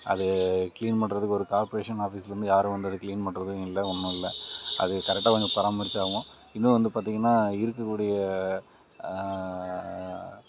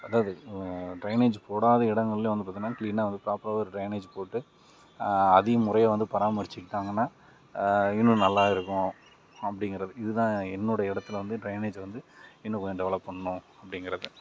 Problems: none marked